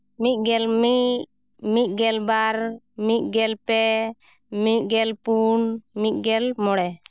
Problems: none marked